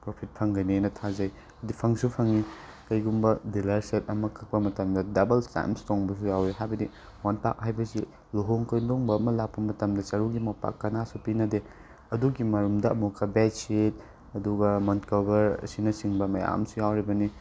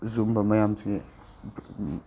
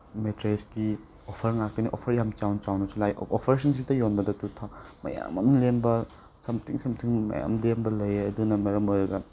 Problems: background sounds at intervals